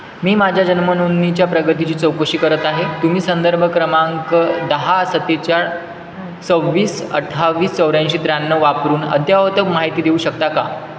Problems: constant background noise